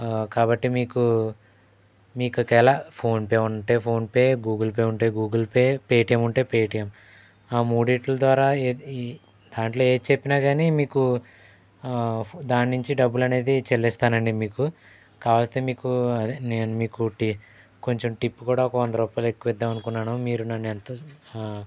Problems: background sounds at intervals